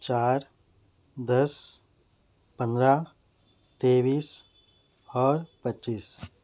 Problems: none marked